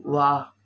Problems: none marked